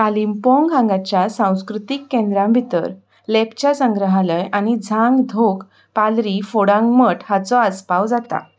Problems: background sounds at intervals